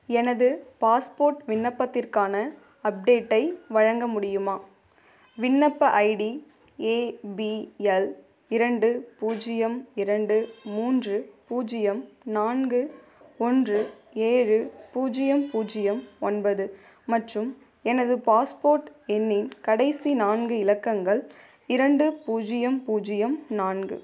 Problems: background sounds at intervals